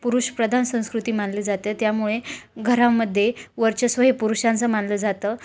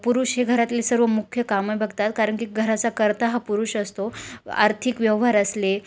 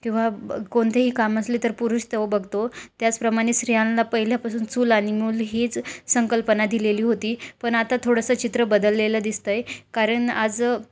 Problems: none marked